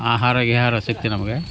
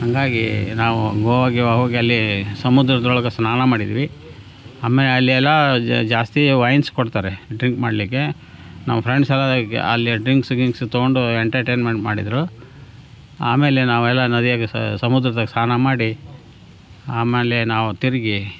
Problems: background sounds at intervals